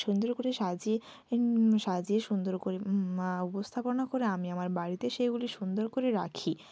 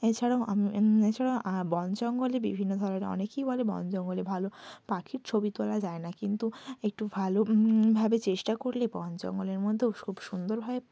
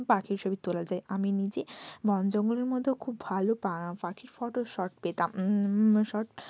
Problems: none marked